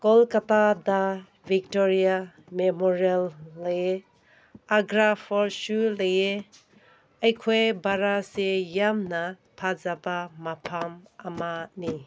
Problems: none marked